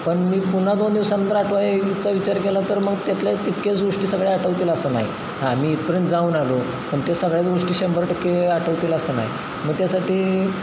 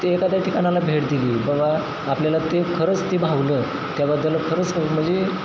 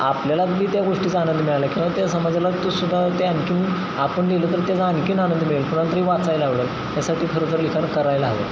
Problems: constant background noise